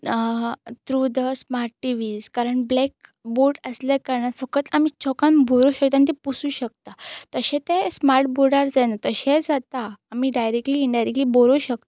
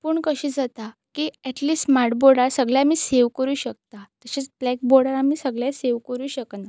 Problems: constant background noise